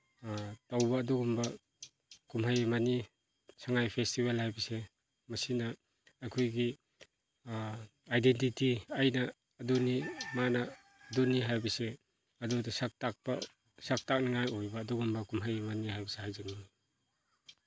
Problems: background sounds at intervals